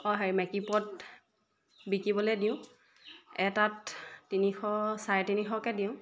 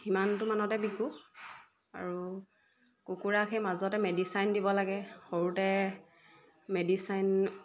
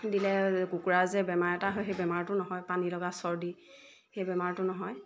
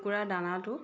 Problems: background sounds at intervals